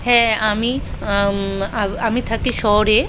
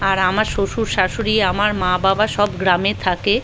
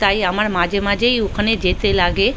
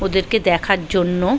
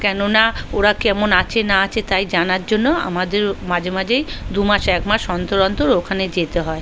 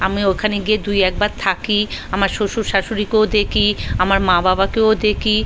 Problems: constant background noise